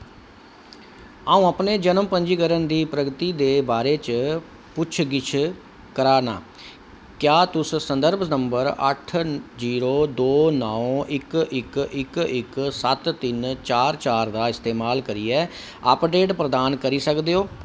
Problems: none marked